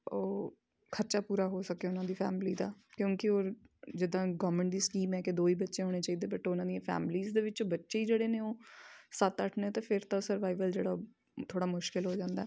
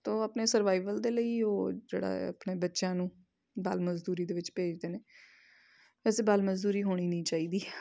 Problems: background sounds at intervals